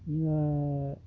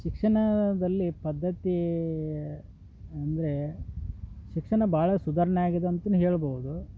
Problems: background conversations at intervals